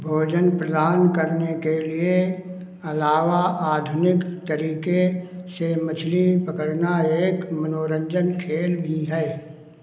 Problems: constant background noise